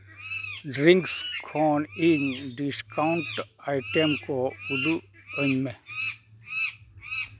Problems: constant background noise